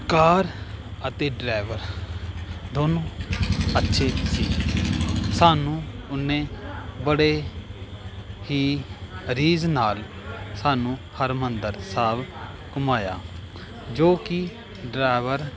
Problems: continuous background conversations